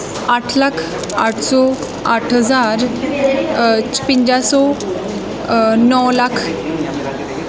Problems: continuous background conversations